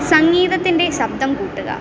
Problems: constant background noise